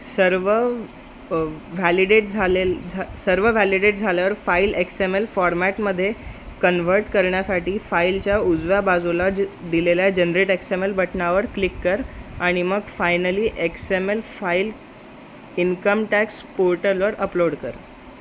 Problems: constant background noise